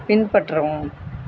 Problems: constant background noise